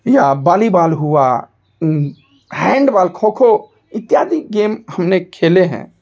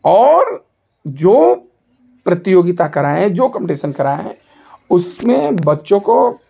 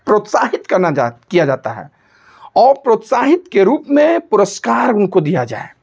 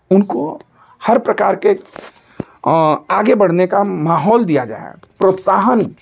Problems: none marked